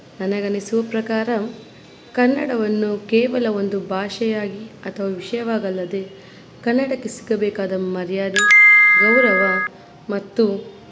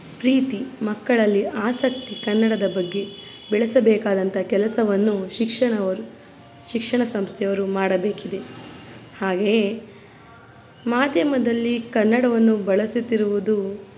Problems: background sounds at intervals